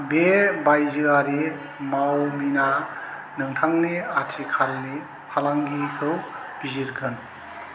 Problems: constant background noise